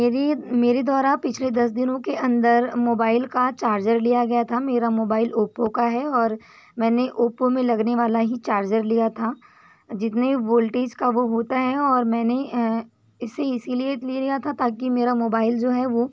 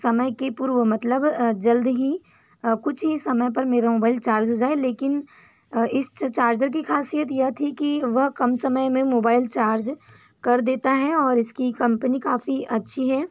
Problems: background sounds at intervals